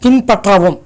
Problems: none marked